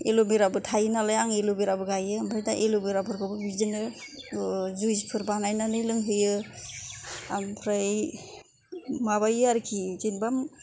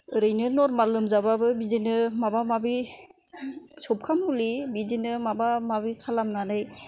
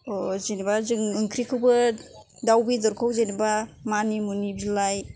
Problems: none marked